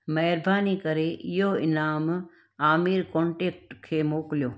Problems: none marked